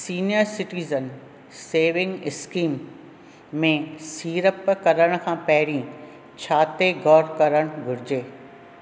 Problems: none marked